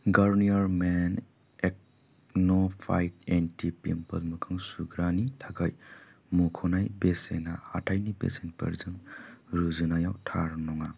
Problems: low volume